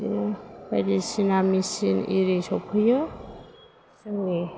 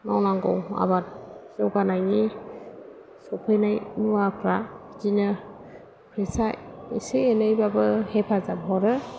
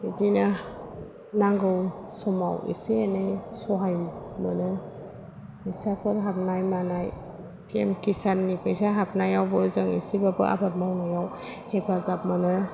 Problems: none marked